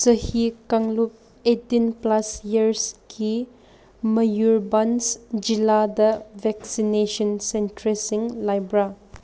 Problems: none marked